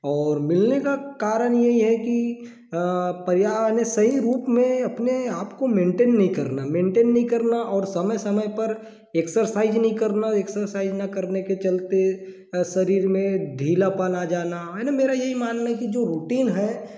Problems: none marked